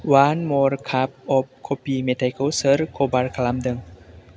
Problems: none marked